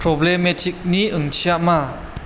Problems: constant background noise